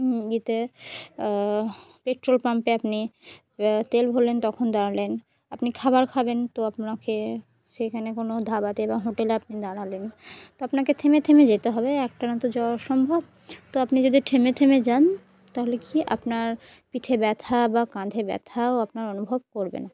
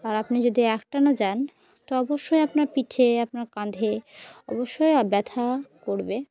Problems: none marked